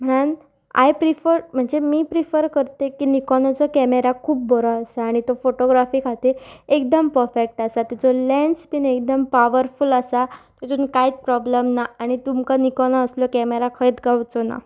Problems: background sounds at intervals